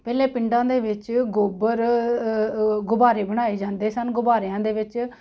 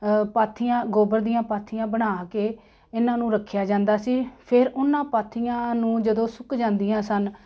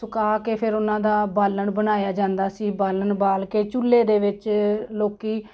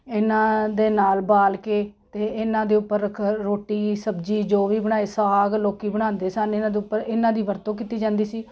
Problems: constant background noise